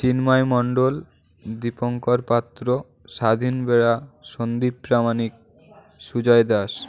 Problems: constant background noise, continuous background conversations